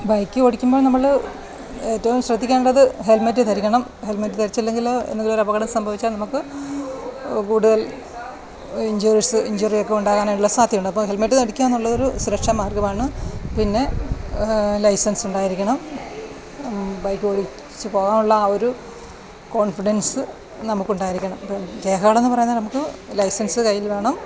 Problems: background sounds at intervals